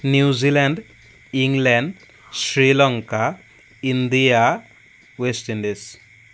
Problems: constant background noise